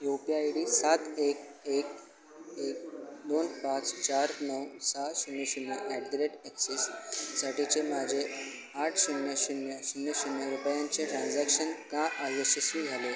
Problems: constant background noise